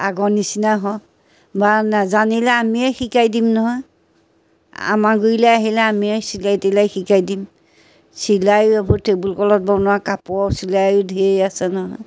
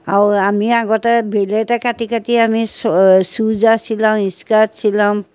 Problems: constant background noise, background conversations at intervals